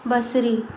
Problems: echo